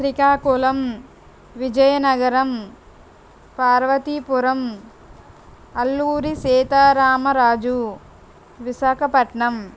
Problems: none marked